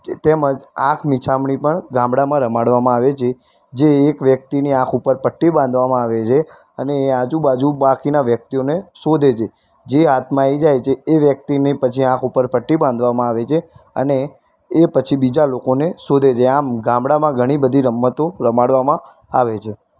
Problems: constant background noise